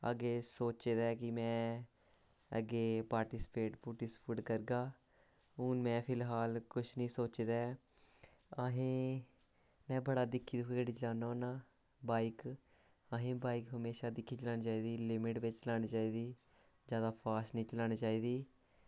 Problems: constant background noise